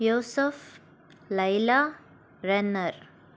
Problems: none marked